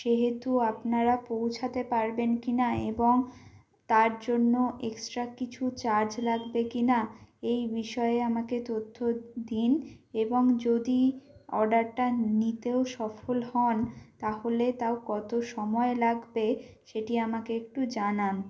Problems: none marked